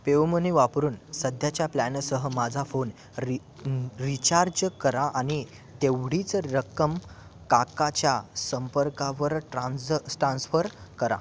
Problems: constant background noise, continuous background conversations